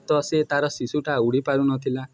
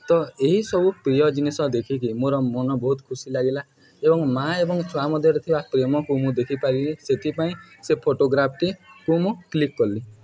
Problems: background sounds at intervals, background conversations at intervals